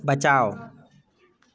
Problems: background sounds at intervals